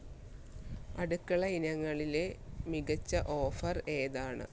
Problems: background sounds at intervals